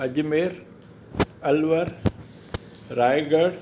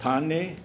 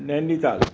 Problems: background sounds at intervals